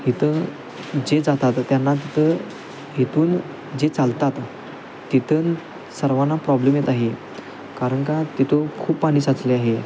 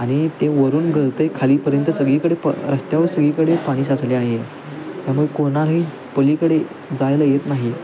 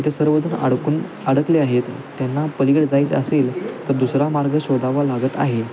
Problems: constant background noise, background conversations at intervals